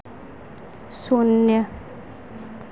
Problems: none marked